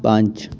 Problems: background sounds at intervals